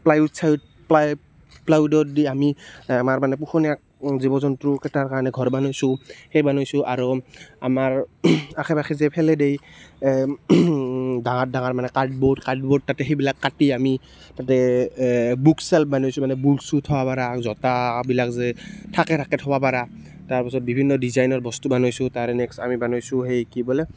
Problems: none marked